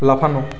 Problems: continuous background conversations